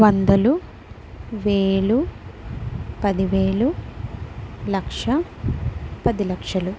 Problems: none marked